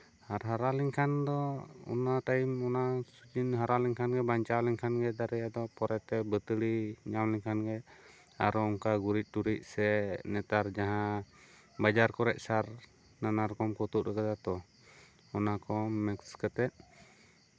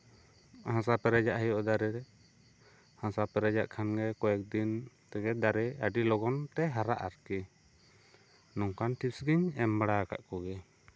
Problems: none marked